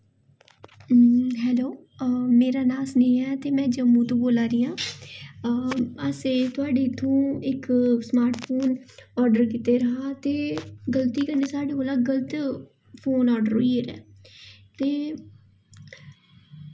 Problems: none marked